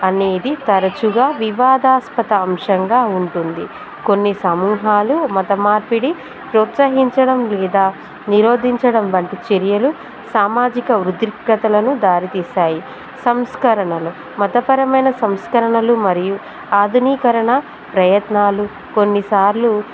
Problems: background sounds at intervals